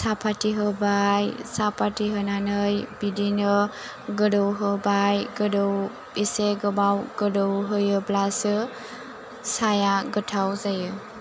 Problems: low volume